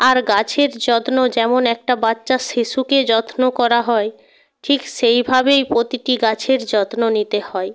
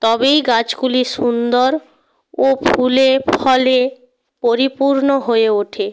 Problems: background sounds at intervals